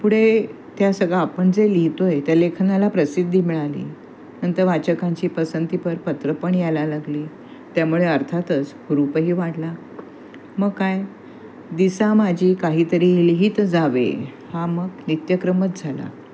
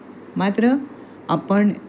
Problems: constant background noise, background conversations at intervals